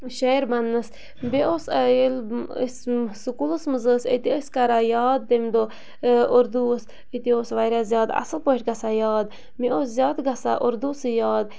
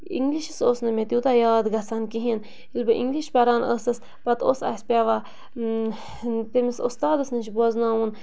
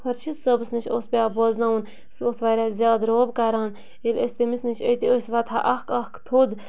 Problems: constant background noise